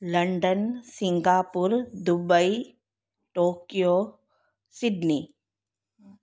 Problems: none marked